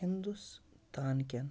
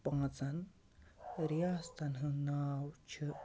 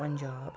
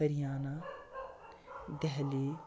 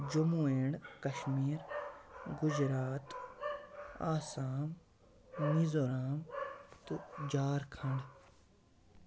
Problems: constant background noise, low volume